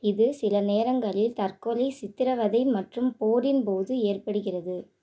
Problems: none marked